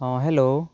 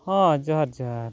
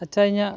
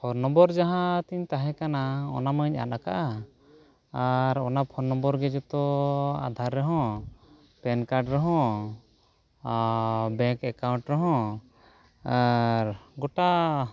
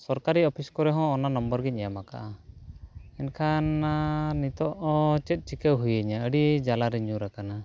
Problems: background conversations at intervals